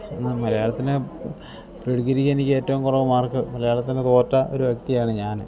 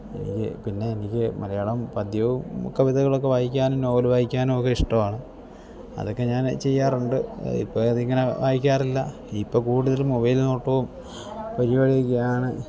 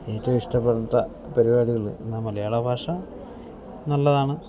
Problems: low volume